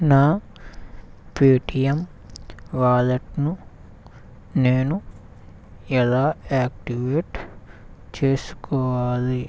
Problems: none marked